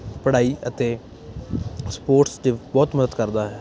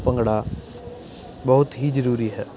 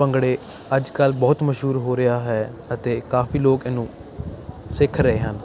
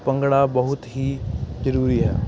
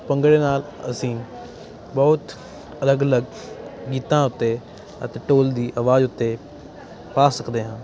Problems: none marked